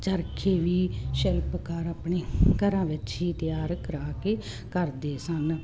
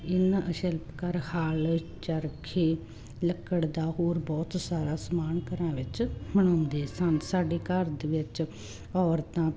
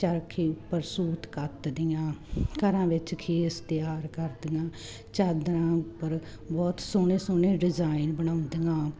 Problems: constant background noise